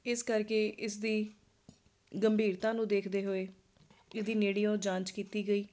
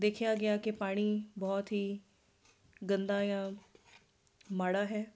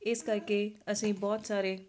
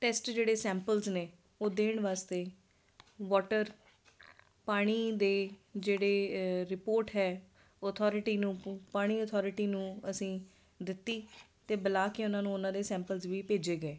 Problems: constant background noise